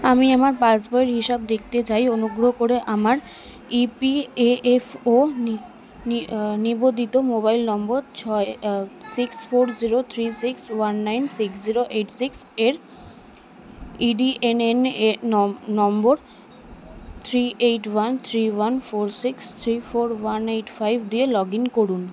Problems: continuous background conversations